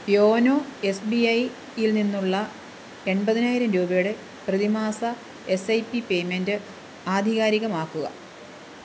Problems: constant background noise